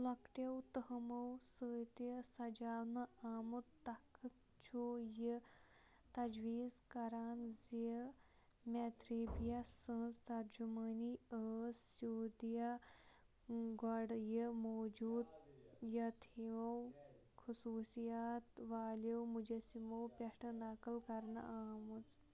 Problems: low volume